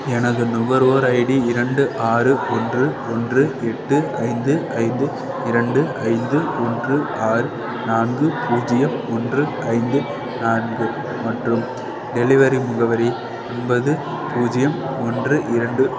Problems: constant background noise